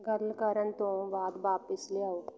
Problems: background conversations at intervals